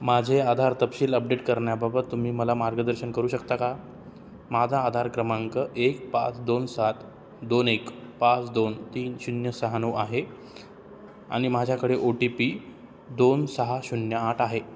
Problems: none marked